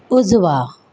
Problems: background sounds at intervals